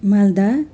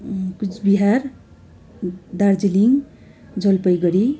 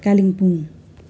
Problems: continuous background conversations